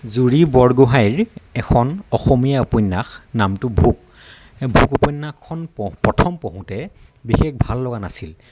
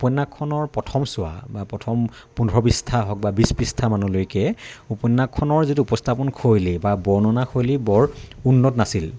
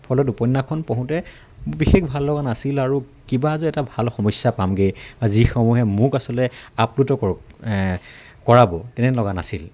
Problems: constant background noise, background conversations at intervals